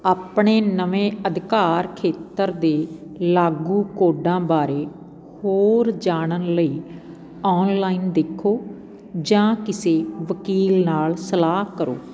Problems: constant background noise